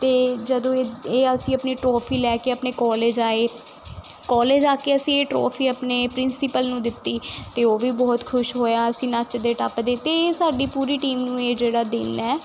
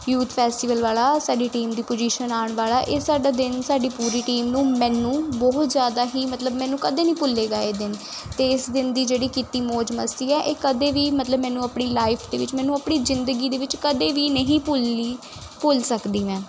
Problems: constant background noise